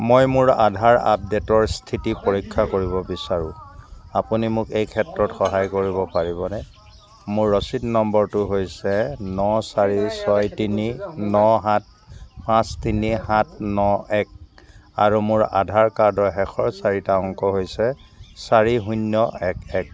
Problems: background sounds at intervals